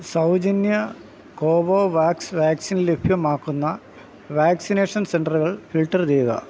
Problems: background sounds at intervals